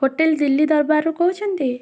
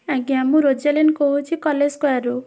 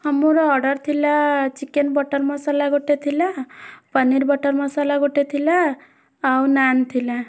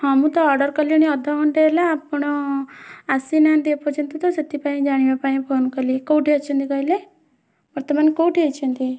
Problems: constant background noise, continuous background conversations